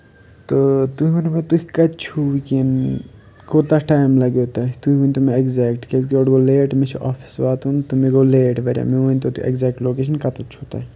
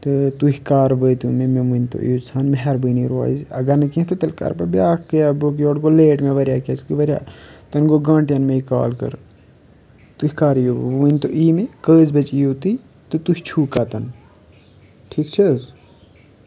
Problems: none marked